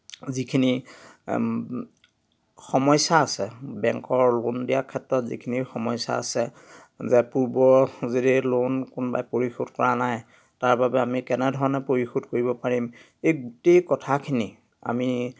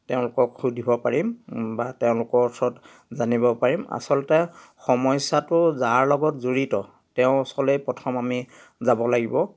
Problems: none marked